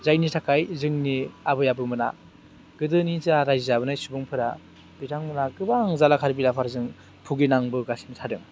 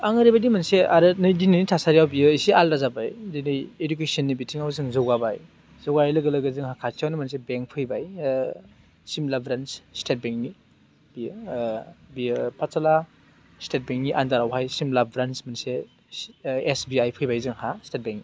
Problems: constant background noise